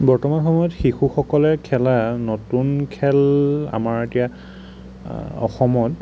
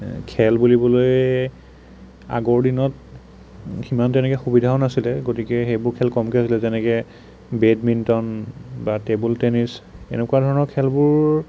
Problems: none marked